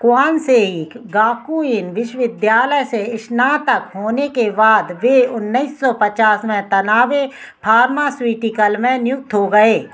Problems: none marked